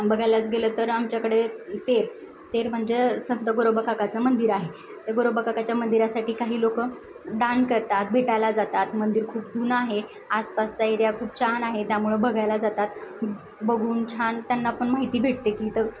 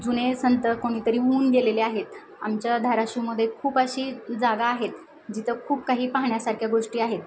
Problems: none marked